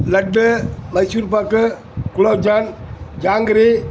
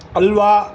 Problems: constant background noise